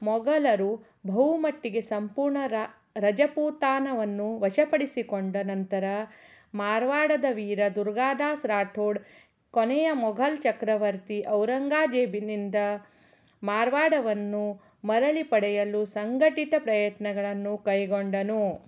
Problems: none marked